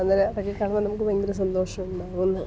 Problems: background sounds at intervals, low volume